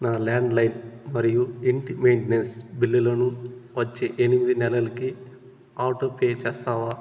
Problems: constant background noise